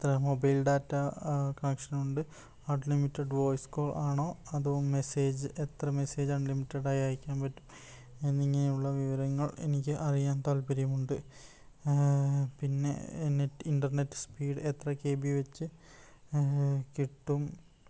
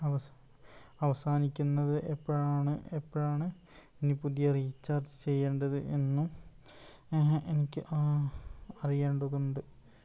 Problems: low volume